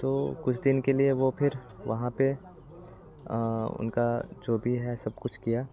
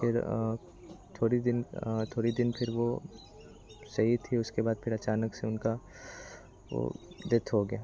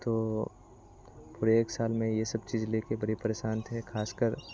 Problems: constant background noise, background conversations at intervals